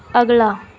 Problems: background conversations at intervals